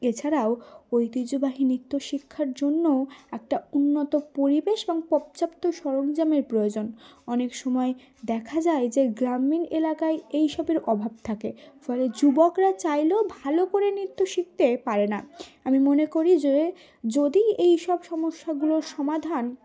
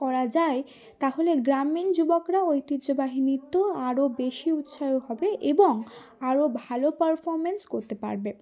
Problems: none marked